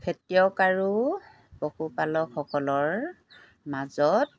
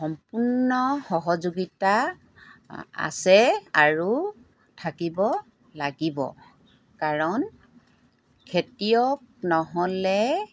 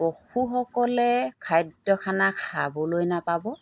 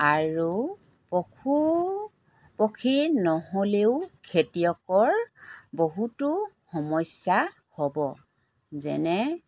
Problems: background sounds at intervals